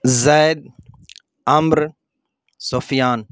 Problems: none marked